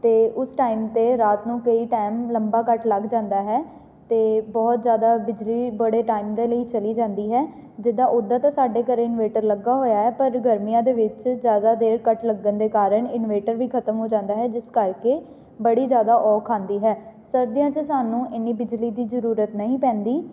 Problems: none marked